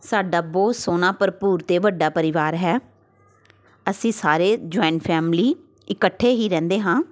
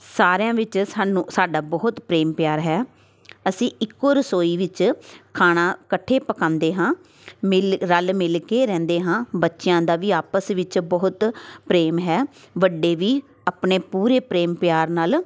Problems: constant background noise